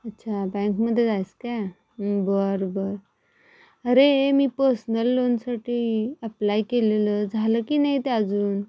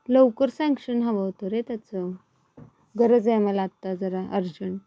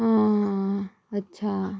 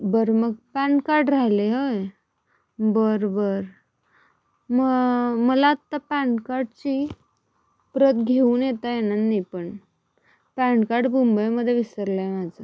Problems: background sounds at intervals